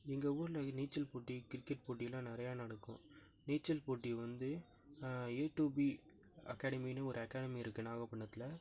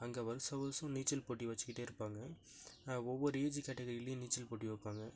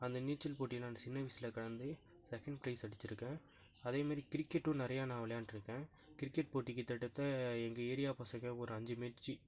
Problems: none marked